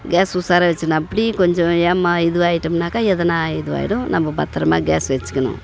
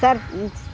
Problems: background conversations at intervals